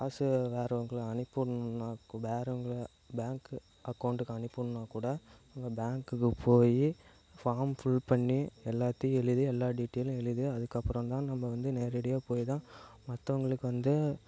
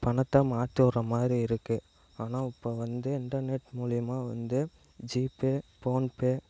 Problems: low volume